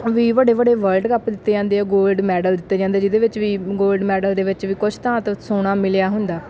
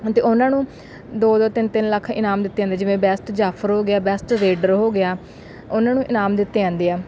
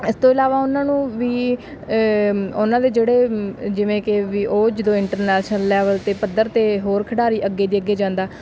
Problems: background sounds at intervals